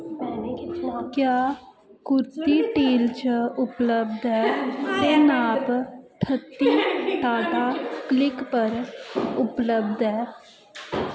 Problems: constant background noise, echo